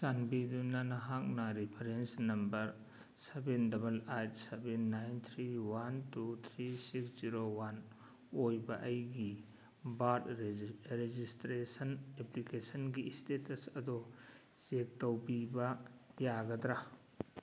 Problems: none marked